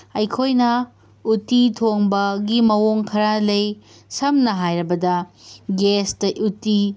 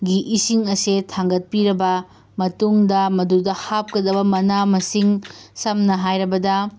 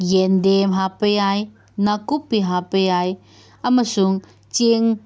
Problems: background sounds at intervals